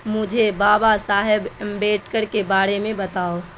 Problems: constant background noise